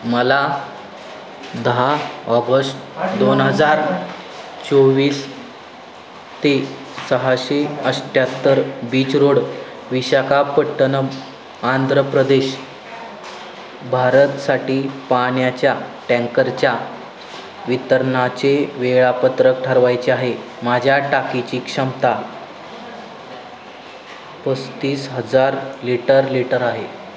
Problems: constant background noise, background conversations at intervals